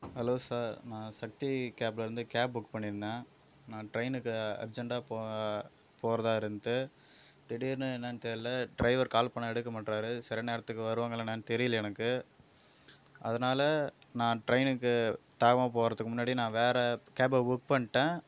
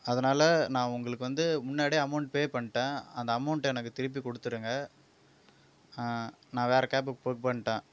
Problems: none marked